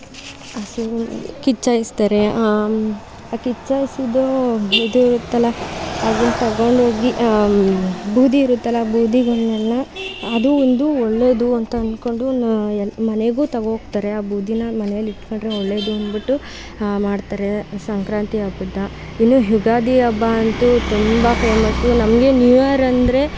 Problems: background sounds at intervals